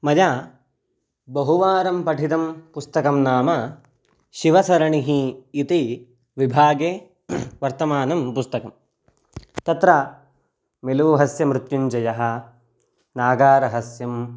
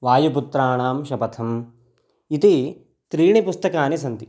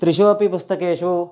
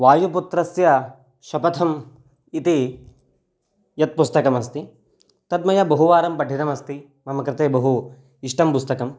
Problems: none marked